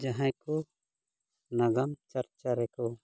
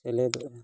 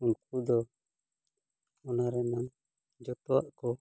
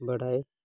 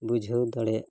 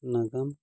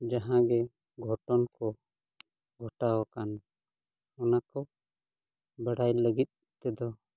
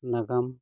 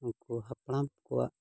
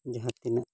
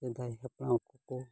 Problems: low volume